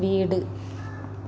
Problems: low volume